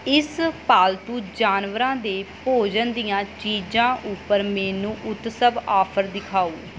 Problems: constant background noise